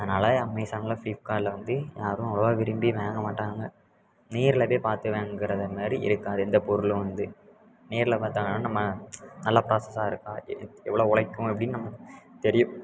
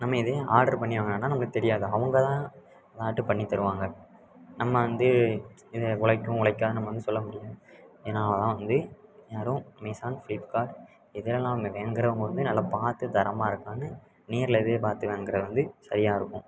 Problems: constant background noise, background conversations at intervals